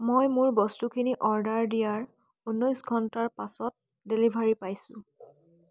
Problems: constant background noise